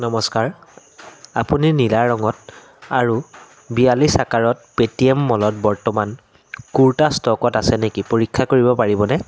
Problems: none marked